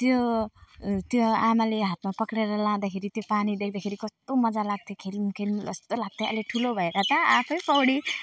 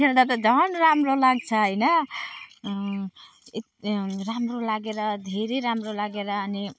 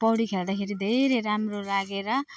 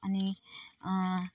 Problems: none marked